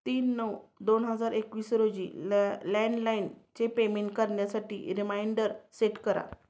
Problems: none marked